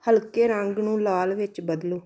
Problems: none marked